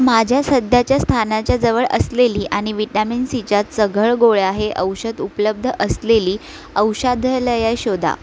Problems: constant background noise, background conversations at intervals